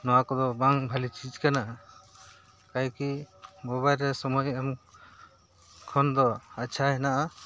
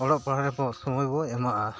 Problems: constant background noise